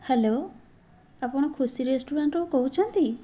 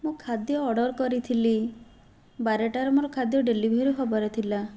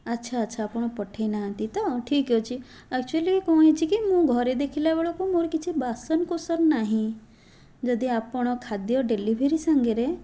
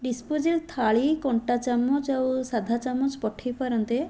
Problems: background sounds at intervals